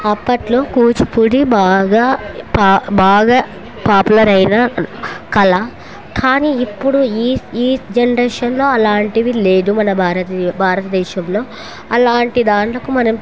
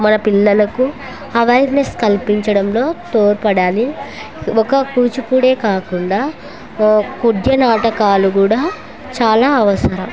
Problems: constant background noise